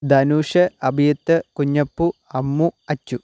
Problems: none marked